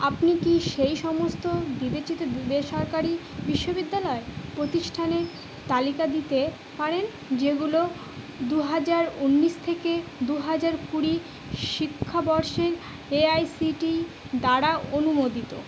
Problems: constant background noise